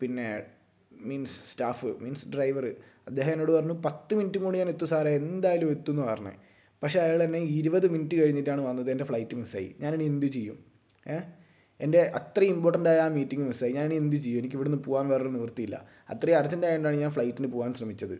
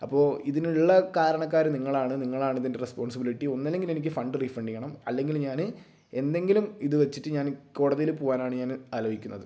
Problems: low volume